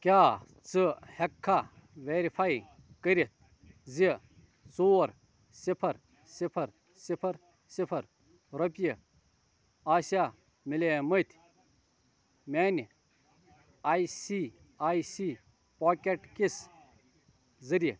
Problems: constant background noise, continuous background conversations